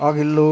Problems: none marked